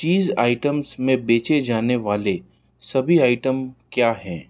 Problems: background sounds at intervals